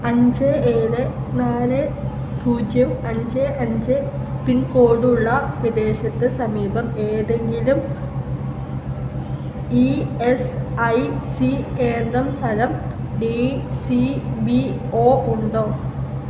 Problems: constant background noise